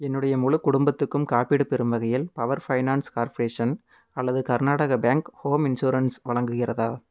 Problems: none marked